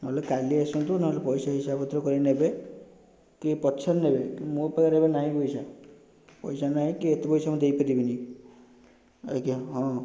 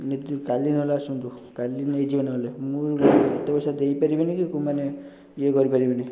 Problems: constant background noise